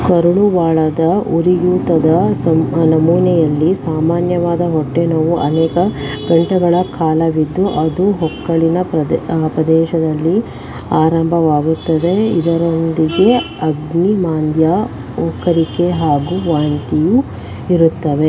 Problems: background sounds at intervals